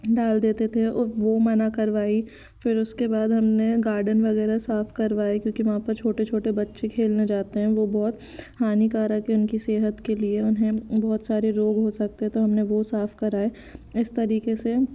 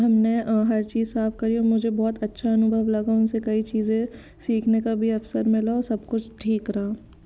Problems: none marked